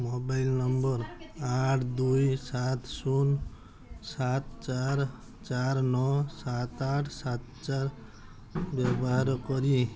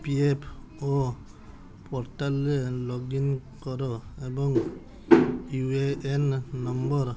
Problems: background sounds at intervals